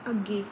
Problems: none marked